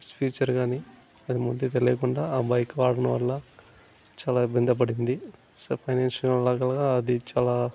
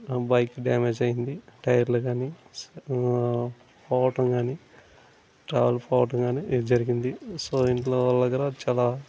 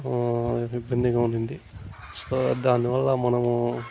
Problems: constant background noise